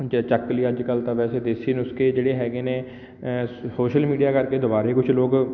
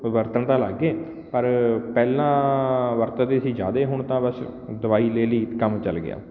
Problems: none marked